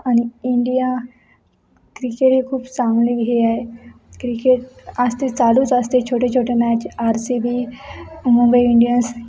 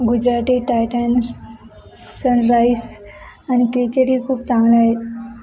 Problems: none marked